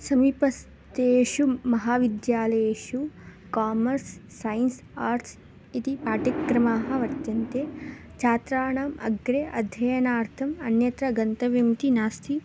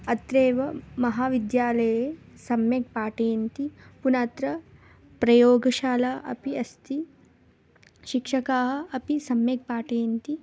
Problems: none marked